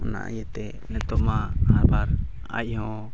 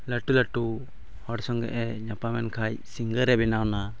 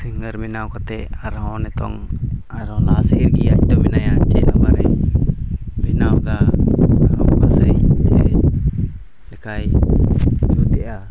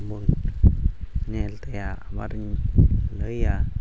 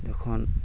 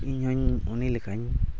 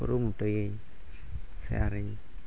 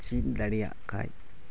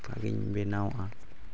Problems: background sounds at intervals